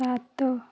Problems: none marked